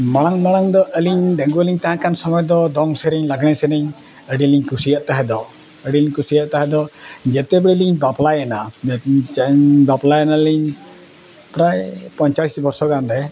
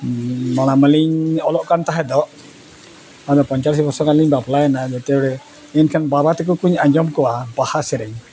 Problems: background conversations at intervals